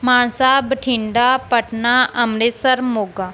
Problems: background sounds at intervals